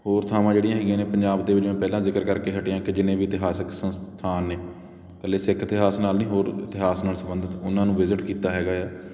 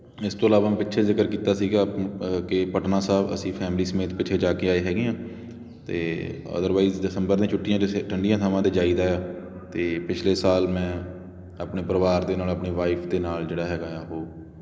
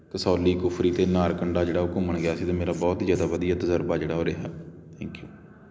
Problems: constant background noise